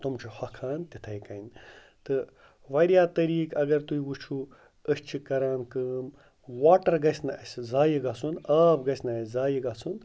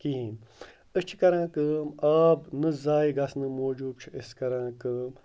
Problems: none marked